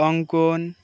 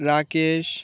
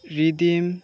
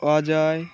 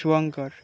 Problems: background sounds at intervals, continuous background conversations